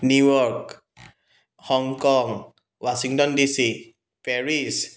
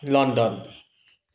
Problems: background sounds at intervals